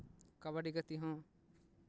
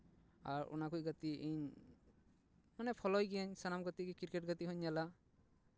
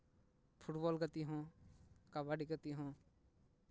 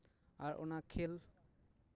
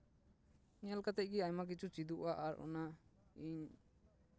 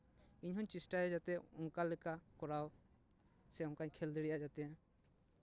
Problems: none marked